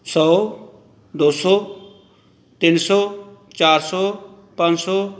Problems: background sounds at intervals